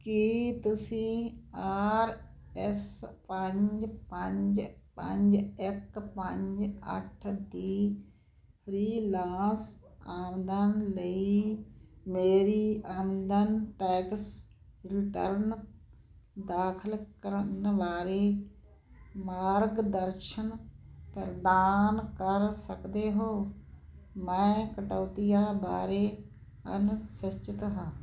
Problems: constant background noise